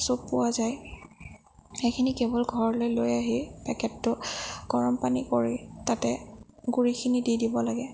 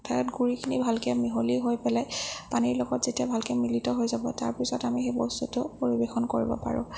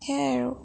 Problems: low volume